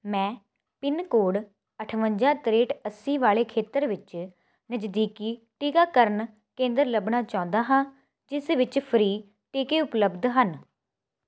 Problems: none marked